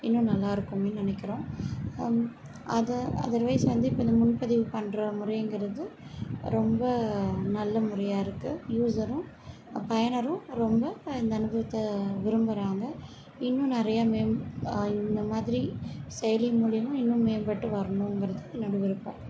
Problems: background sounds at intervals, background conversations at intervals